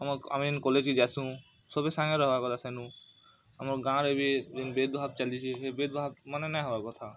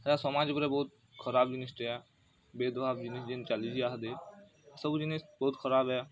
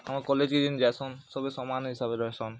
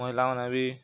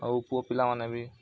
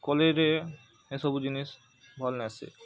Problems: constant background noise